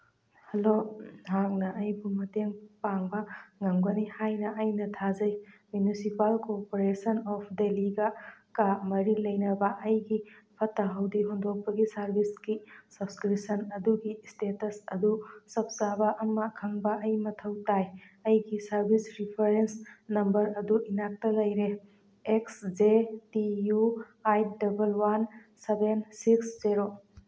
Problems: none marked